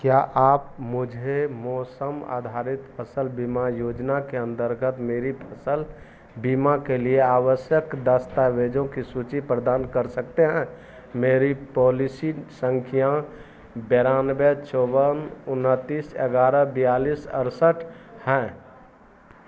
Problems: none marked